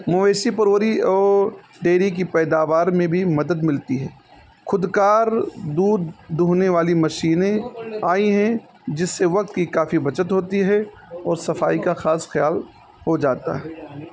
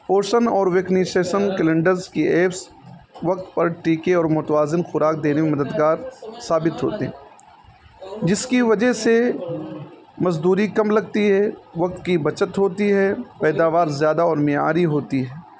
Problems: constant background noise